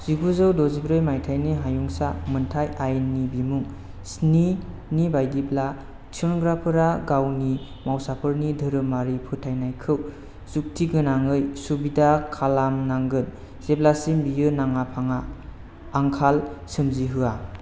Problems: constant background noise